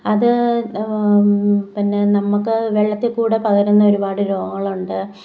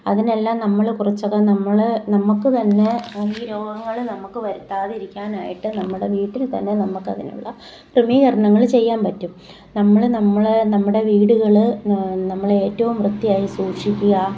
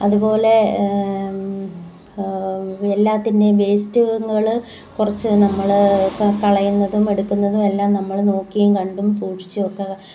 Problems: background sounds at intervals